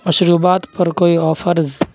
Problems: none marked